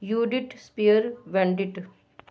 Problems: none marked